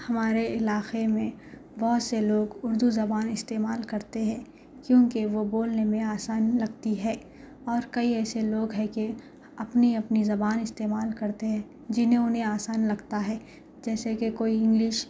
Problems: none marked